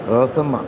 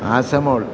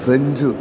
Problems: background sounds at intervals